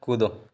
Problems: background sounds at intervals